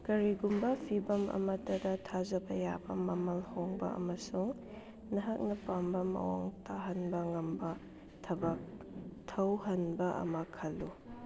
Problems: none marked